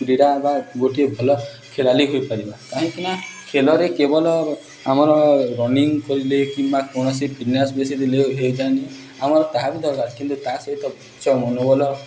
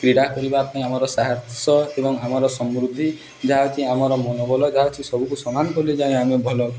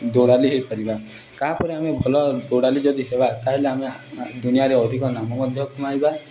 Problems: background sounds at intervals, background conversations at intervals